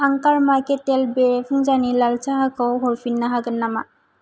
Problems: low volume